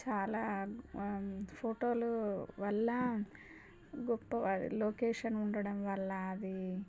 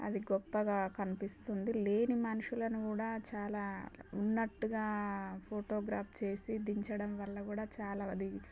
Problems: low volume